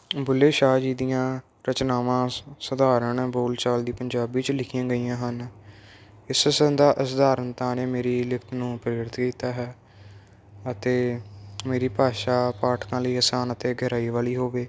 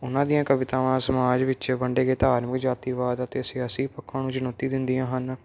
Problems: none marked